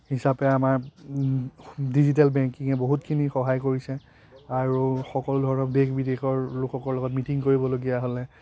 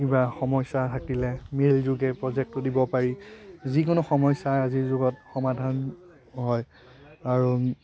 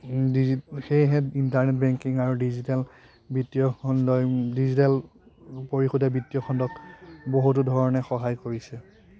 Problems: constant background noise, continuous background conversations